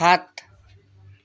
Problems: none marked